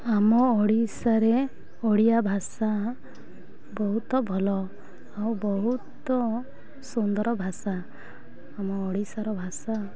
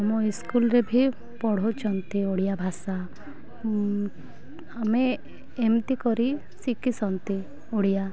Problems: low volume